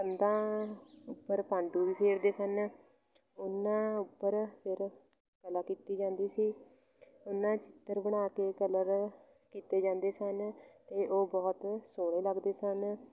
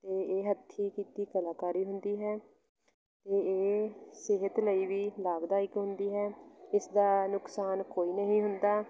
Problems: constant background noise, continuous background conversations